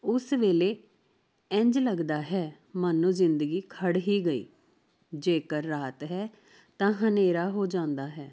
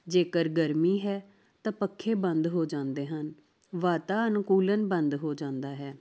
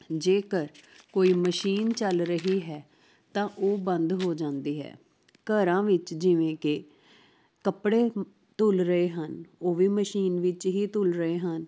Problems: constant background noise